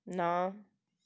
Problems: none marked